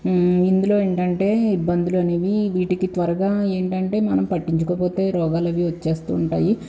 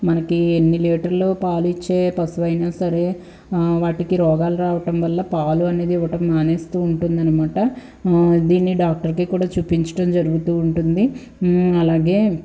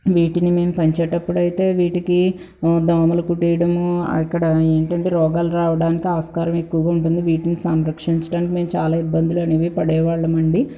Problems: background sounds at intervals